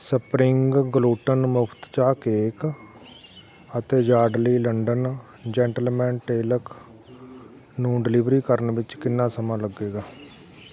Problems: constant background noise